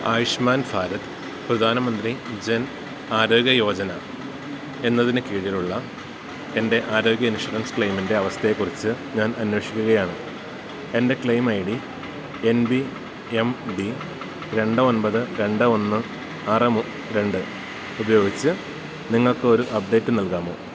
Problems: constant background noise